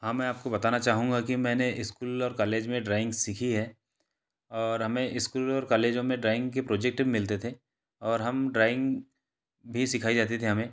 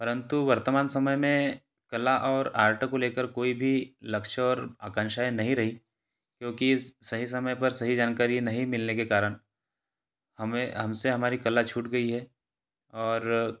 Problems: none marked